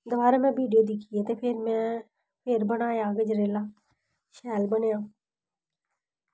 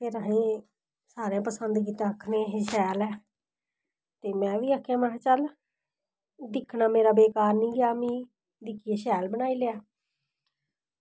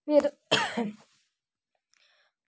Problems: none marked